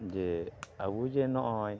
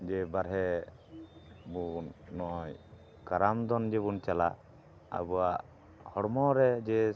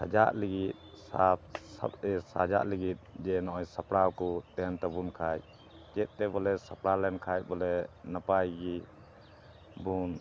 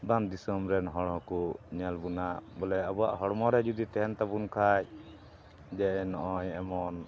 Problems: constant background noise